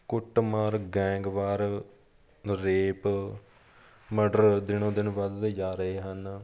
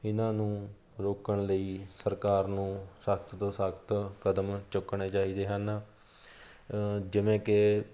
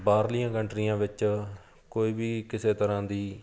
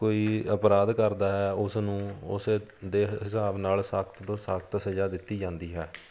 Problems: background sounds at intervals, background conversations at intervals